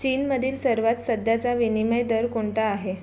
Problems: constant background noise